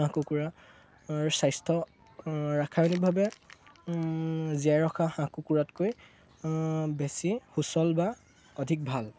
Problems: none marked